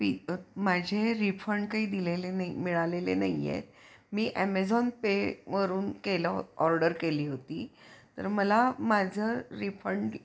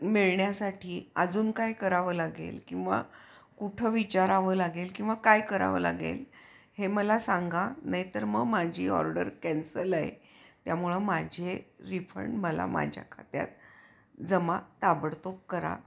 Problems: background sounds at intervals